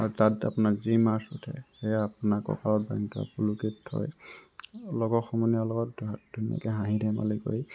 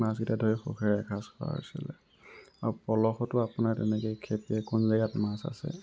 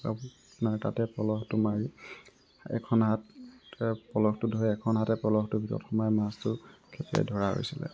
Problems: constant background noise